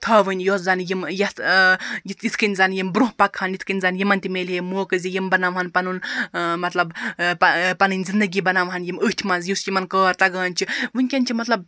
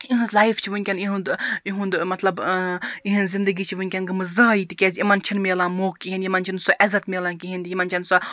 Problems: background sounds at intervals